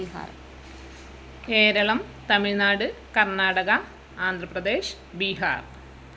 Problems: constant background noise, background conversations at intervals